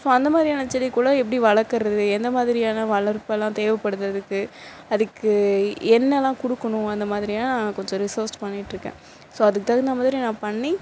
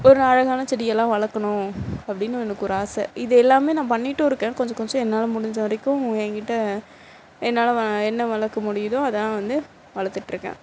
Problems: constant background noise